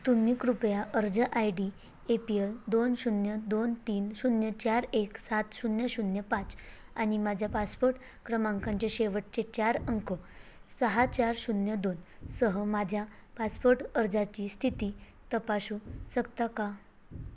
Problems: constant background noise